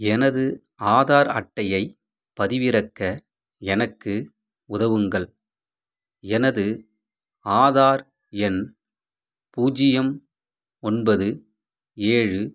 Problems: background sounds at intervals